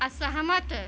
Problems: constant background noise, continuous background conversations